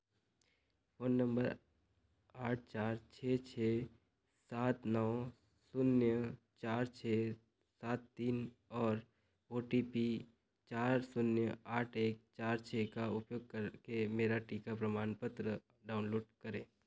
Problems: none marked